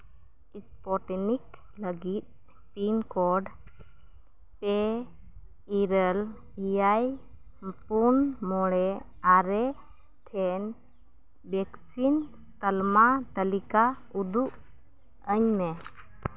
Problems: none marked